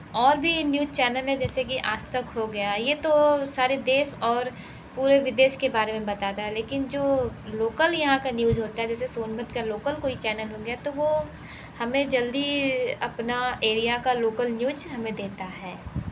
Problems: background sounds at intervals